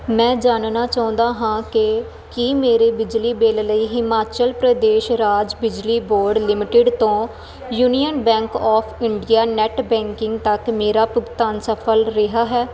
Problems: none marked